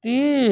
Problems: background sounds at intervals